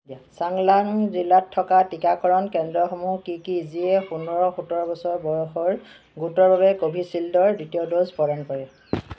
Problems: constant background noise